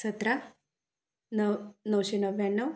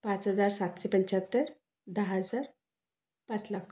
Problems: none marked